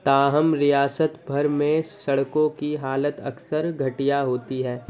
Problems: constant background noise